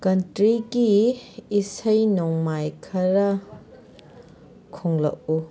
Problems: background conversations at intervals